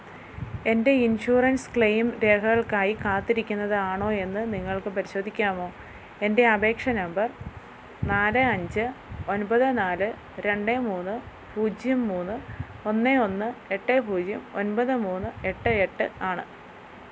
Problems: none marked